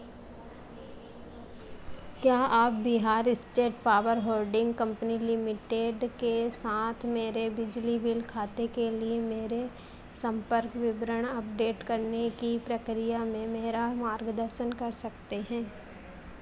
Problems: none marked